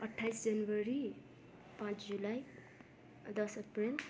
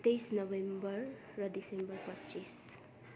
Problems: continuous background conversations